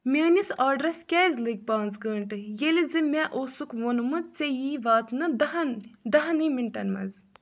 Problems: none marked